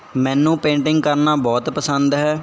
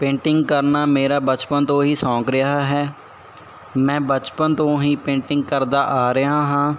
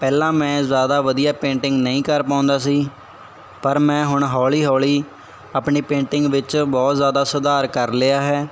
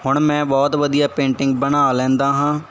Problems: none marked